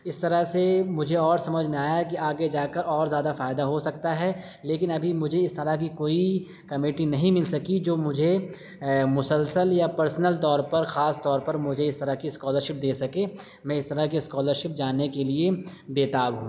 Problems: none marked